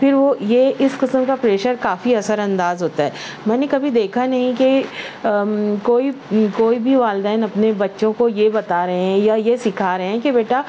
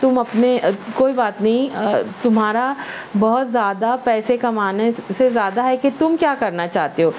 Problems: constant background noise